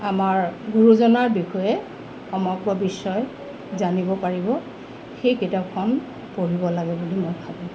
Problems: constant background noise